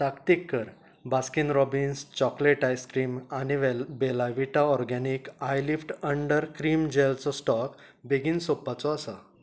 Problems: background conversations at intervals